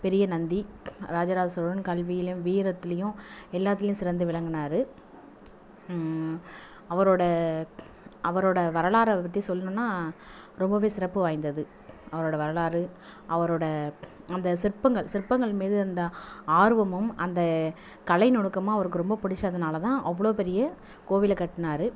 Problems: background sounds at intervals